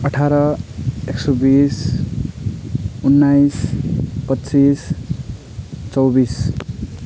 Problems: none marked